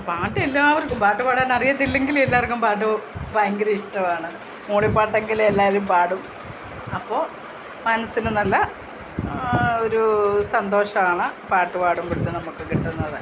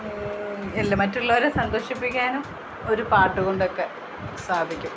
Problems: constant background noise, low volume